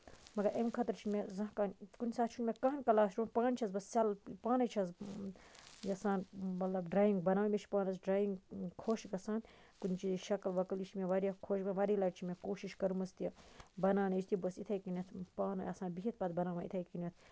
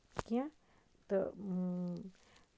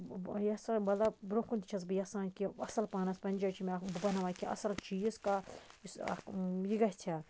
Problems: constant background noise, low volume